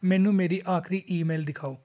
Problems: none marked